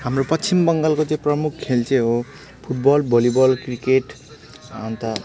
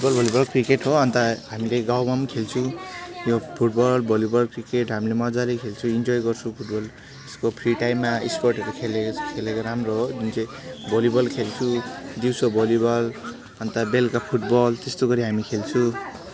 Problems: background sounds at intervals, background conversations at intervals